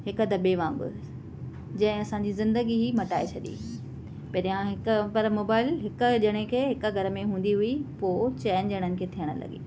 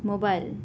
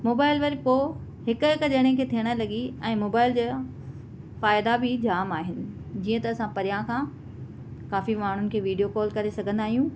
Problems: none marked